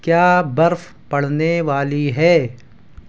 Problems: constant background noise